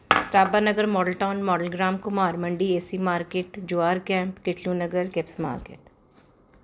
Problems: constant background noise